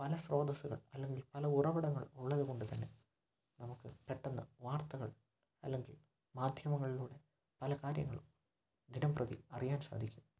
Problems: low volume